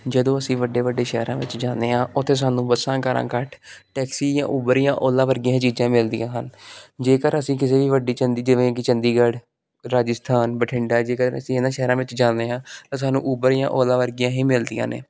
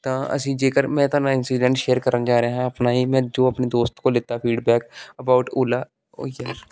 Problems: background sounds at intervals